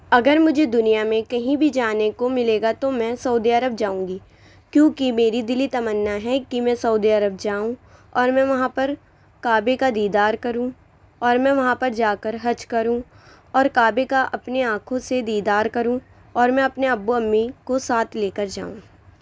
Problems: none marked